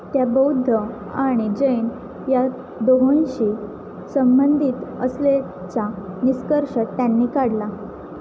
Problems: constant background noise